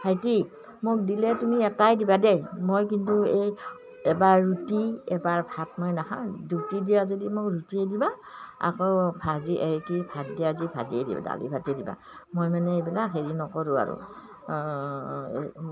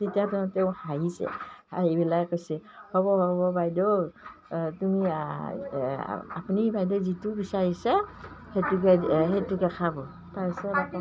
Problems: none marked